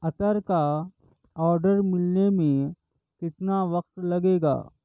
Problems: none marked